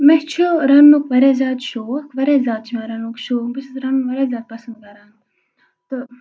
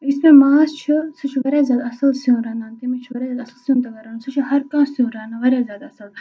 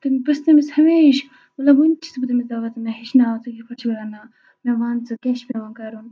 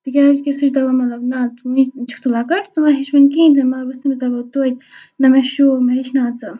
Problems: constant background noise